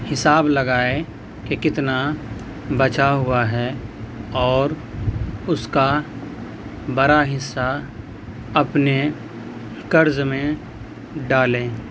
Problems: constant background noise